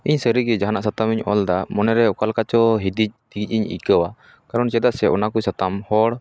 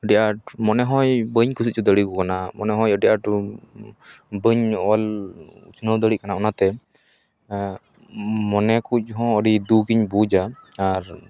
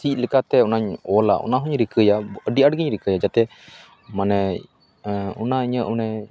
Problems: background conversations at intervals